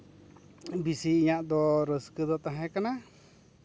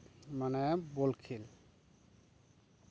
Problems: constant background noise